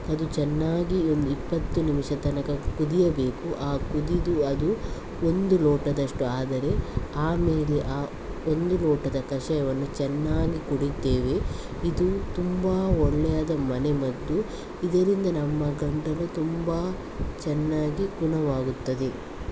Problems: constant background noise